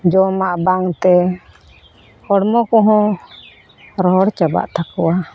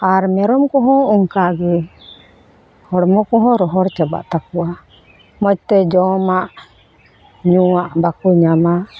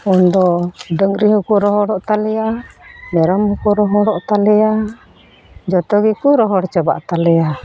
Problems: constant background noise